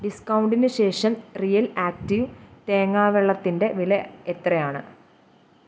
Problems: none marked